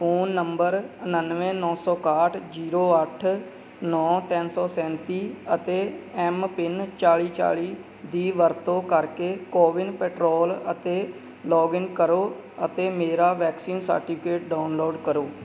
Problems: background sounds at intervals